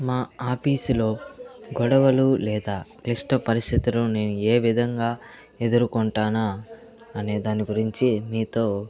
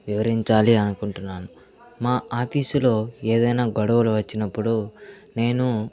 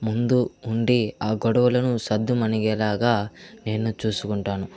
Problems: constant background noise, background conversations at intervals